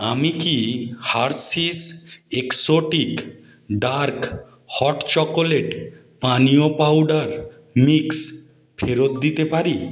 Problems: background sounds at intervals